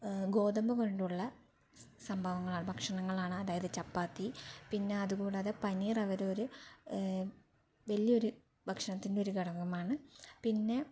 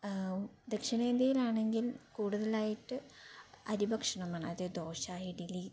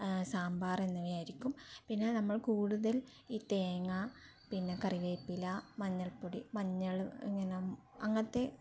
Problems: low volume